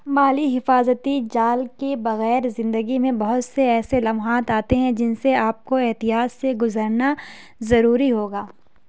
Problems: none marked